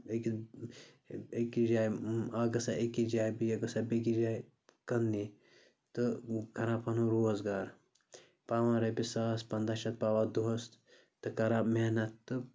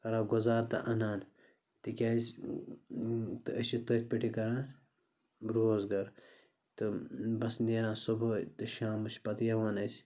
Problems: constant background noise